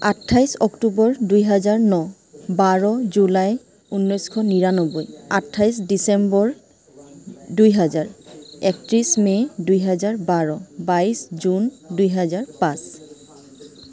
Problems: constant background noise